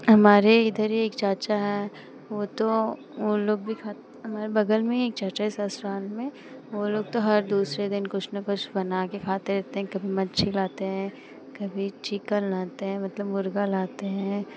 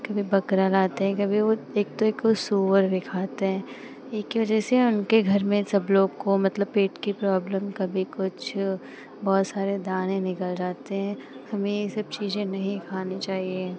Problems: constant background noise